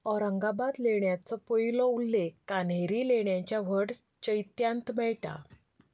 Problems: none marked